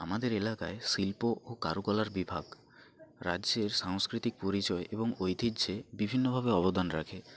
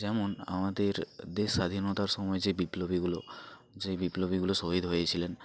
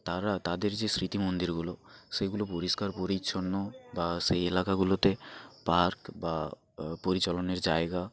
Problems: none marked